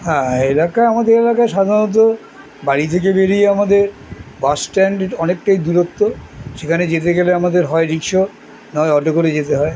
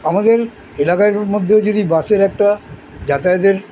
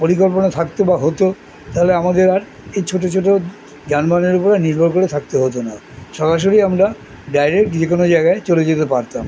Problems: none marked